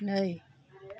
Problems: low volume